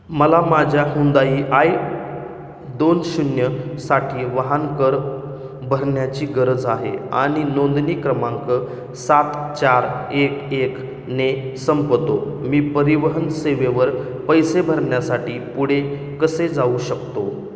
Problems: none marked